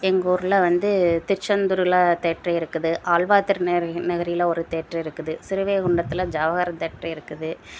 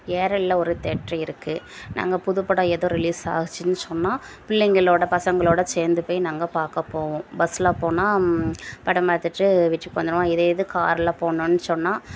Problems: none marked